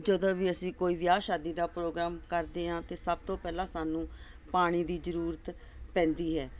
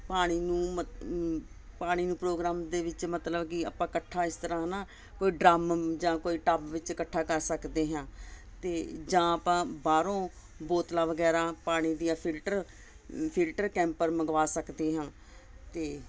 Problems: constant background noise